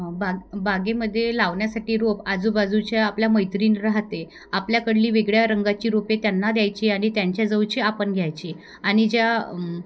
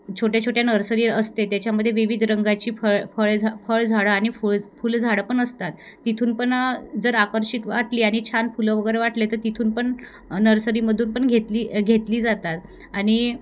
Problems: background sounds at intervals